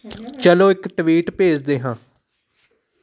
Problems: background conversations at intervals